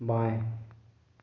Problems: constant background noise, echo